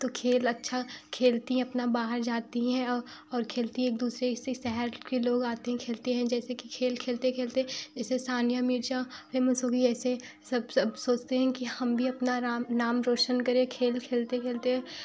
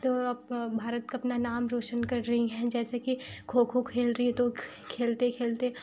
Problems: background sounds at intervals